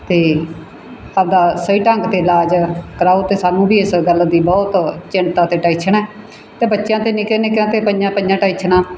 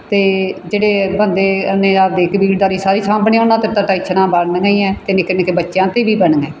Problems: background sounds at intervals